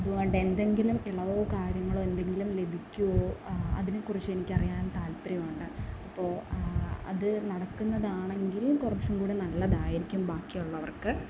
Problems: constant background noise